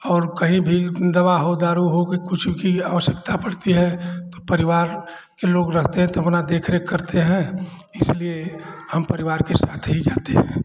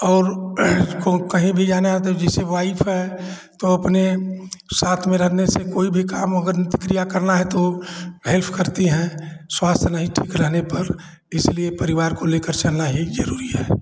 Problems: none marked